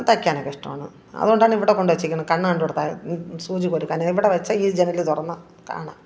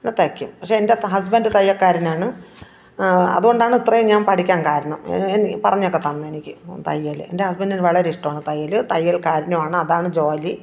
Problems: background conversations at intervals